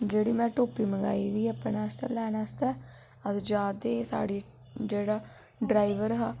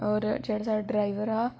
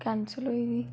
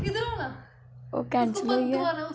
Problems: constant background noise